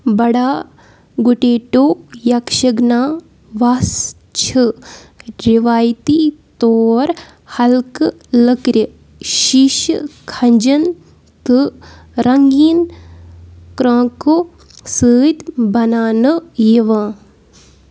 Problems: background sounds at intervals